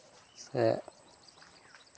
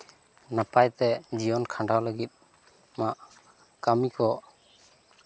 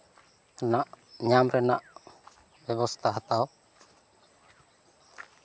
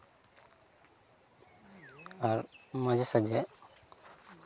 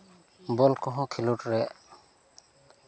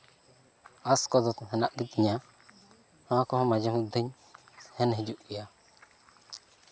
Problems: constant background noise, continuous background conversations